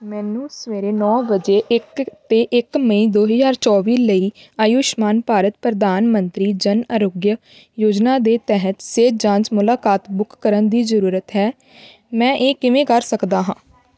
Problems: background sounds at intervals